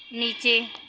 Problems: none marked